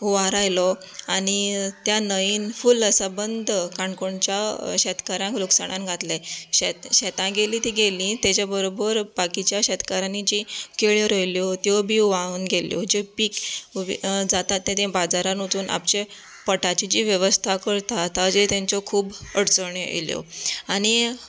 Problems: background sounds at intervals